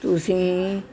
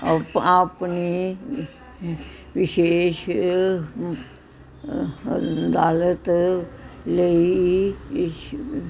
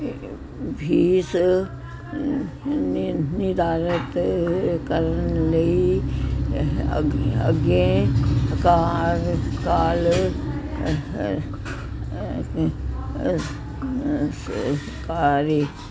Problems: none marked